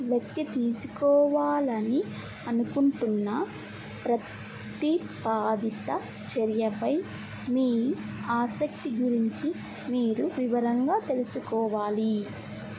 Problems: constant background noise